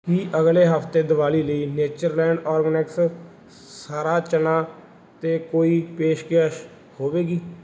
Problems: background sounds at intervals